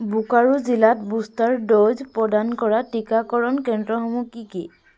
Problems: constant background noise